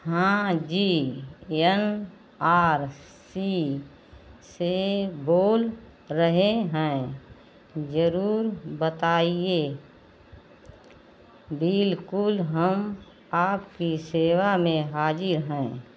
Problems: none marked